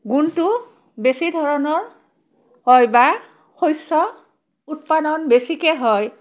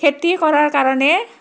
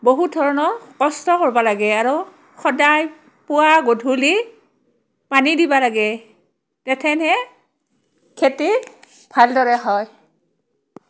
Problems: background conversations at intervals